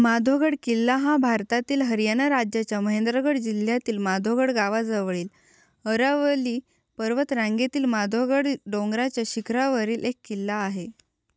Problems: none marked